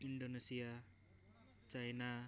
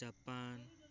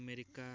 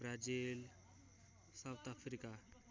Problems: low volume